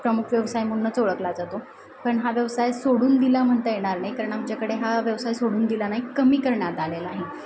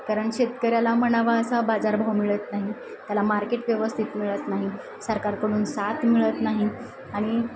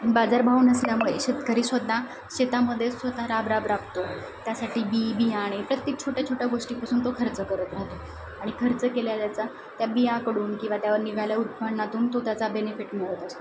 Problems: none marked